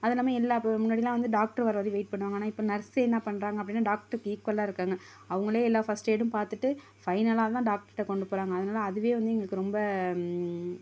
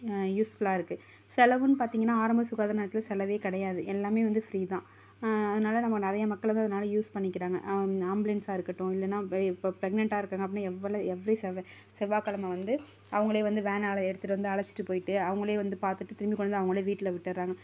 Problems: none marked